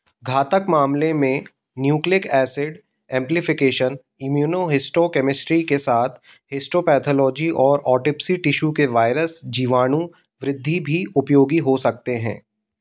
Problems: background sounds at intervals